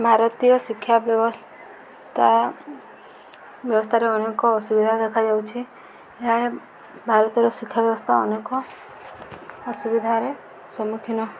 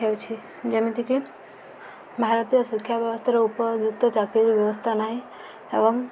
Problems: background sounds at intervals